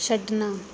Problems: background sounds at intervals